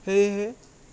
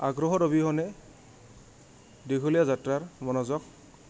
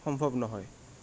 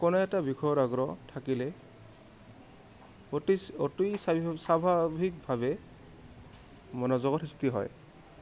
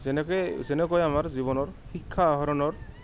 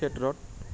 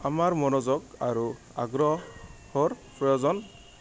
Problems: background sounds at intervals